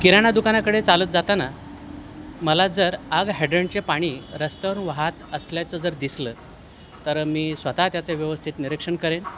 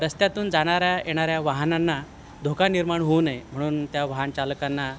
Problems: constant background noise